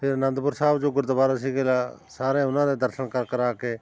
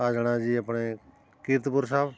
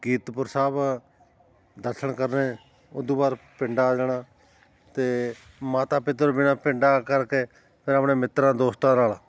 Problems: constant background noise